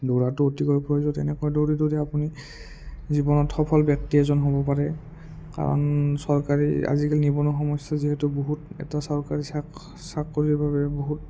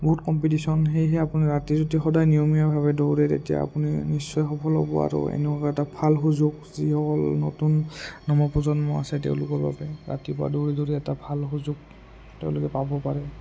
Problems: low volume